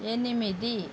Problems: constant background noise